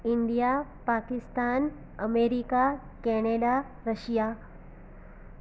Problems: constant background noise